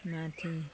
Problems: background conversations at intervals